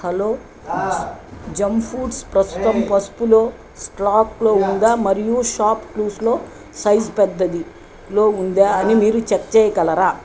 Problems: background conversations at intervals